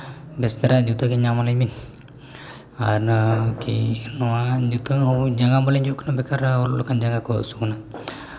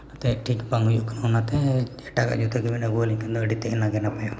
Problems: background sounds at intervals